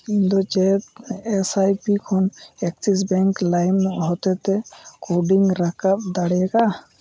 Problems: none marked